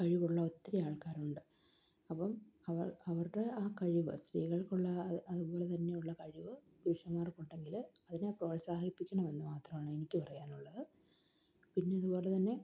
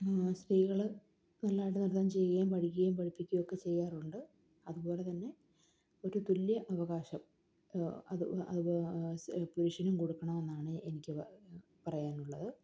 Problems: low volume